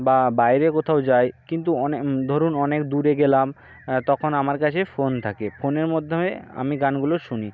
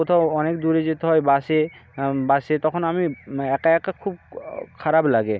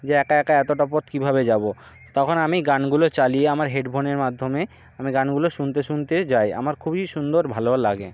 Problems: background sounds at intervals